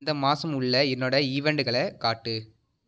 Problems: none marked